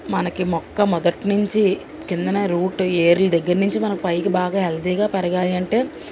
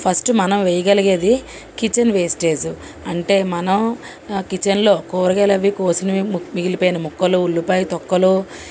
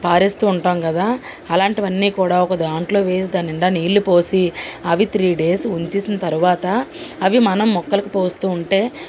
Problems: constant background noise